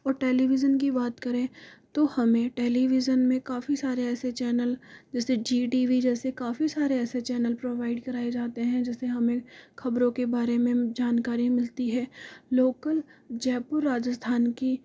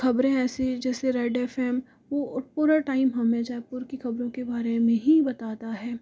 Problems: constant background noise